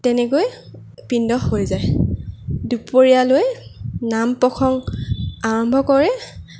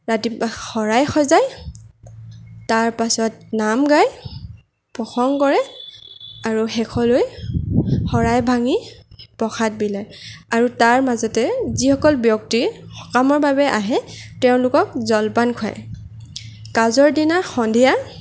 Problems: none marked